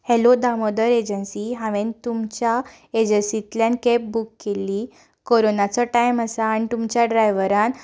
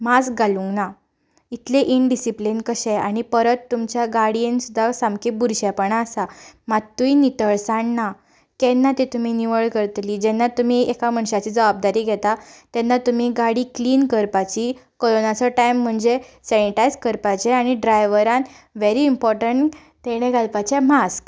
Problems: background conversations at intervals